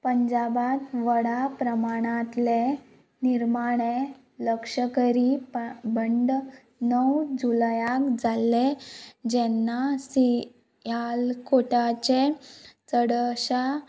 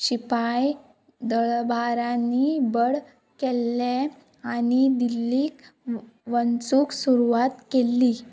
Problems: background sounds at intervals